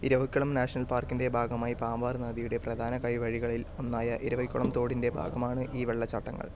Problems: background sounds at intervals, low volume